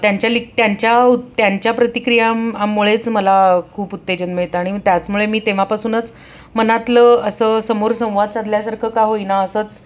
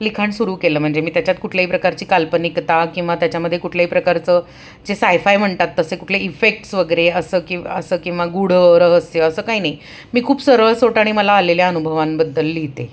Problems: background sounds at intervals